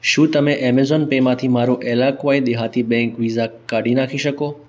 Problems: none marked